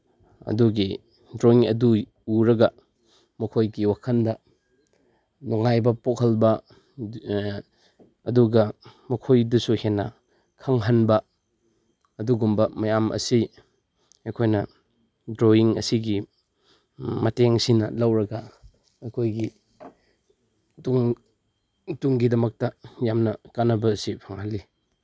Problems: background sounds at intervals